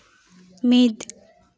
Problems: none marked